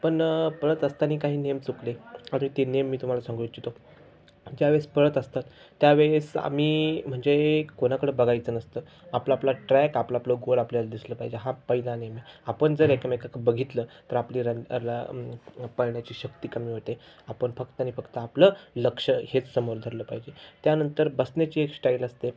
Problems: background sounds at intervals